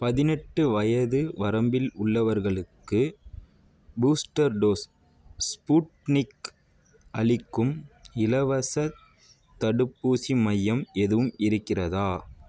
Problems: background sounds at intervals